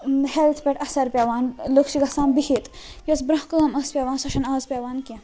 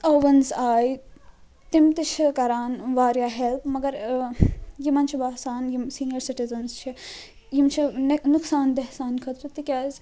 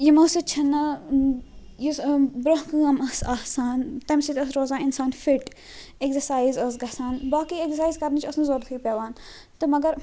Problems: constant background noise